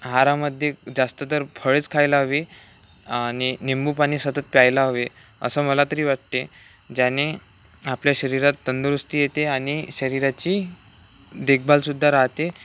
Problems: none marked